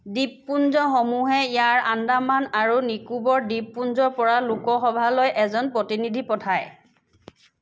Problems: none marked